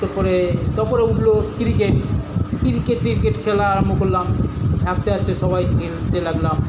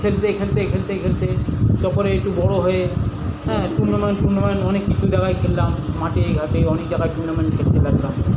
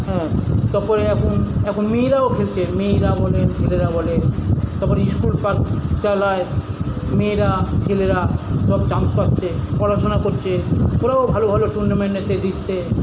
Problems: constant background noise